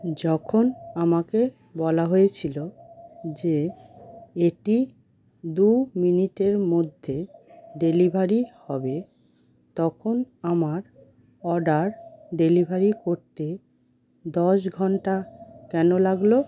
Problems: constant background noise